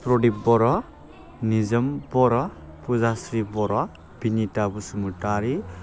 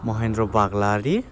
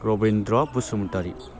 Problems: low volume